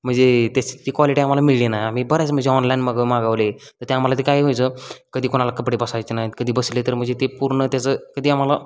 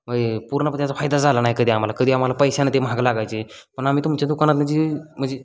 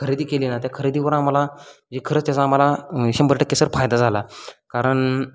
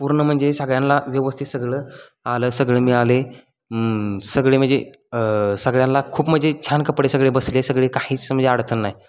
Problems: constant background noise